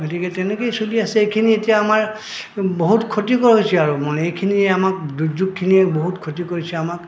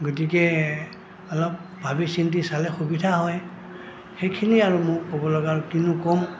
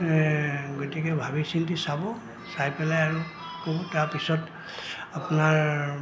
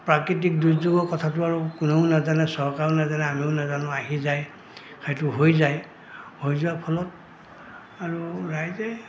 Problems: constant background noise, background conversations at intervals